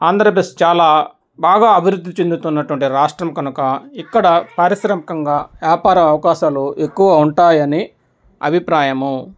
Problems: none marked